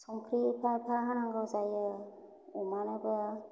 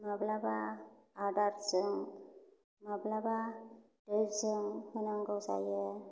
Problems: low volume